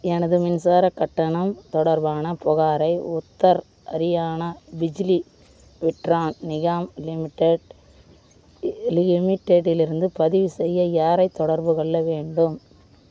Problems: constant background noise